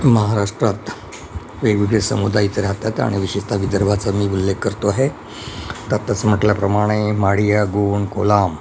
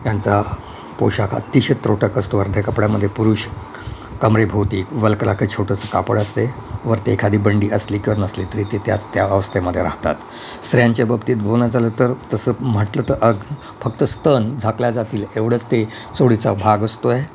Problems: constant background noise